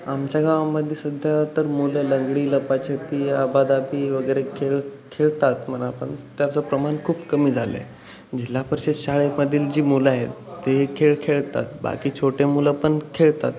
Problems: constant background noise